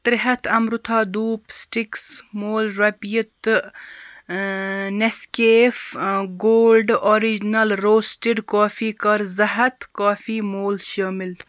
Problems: constant background noise